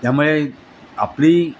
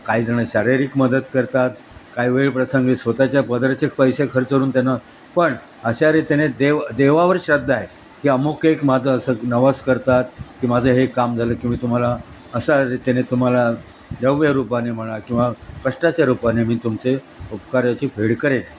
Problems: constant background noise